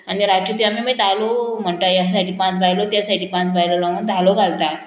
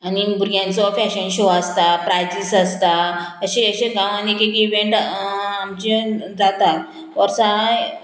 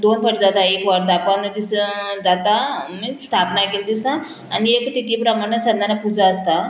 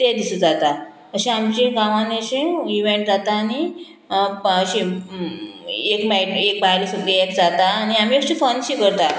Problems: none marked